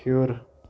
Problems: background sounds at intervals